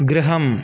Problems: constant background noise